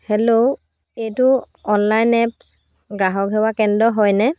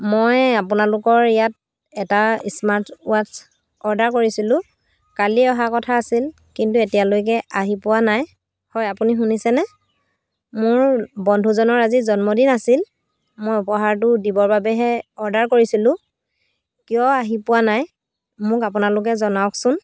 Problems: constant background noise